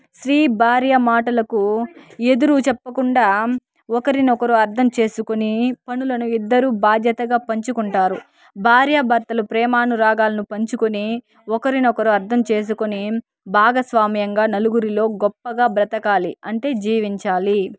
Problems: background sounds at intervals